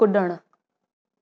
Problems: none marked